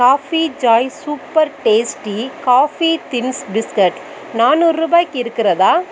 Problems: background sounds at intervals